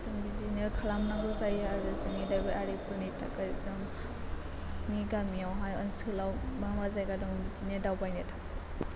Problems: constant background noise